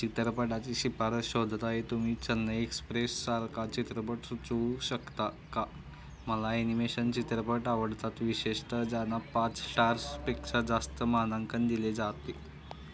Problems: constant background noise